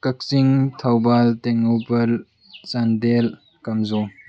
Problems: constant background noise